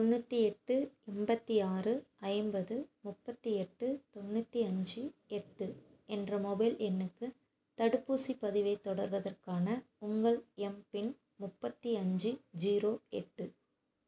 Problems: constant background noise